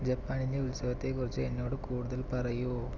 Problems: low volume